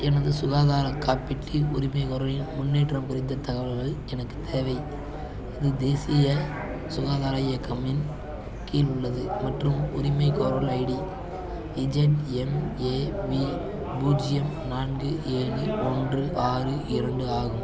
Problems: constant background noise, continuous background conversations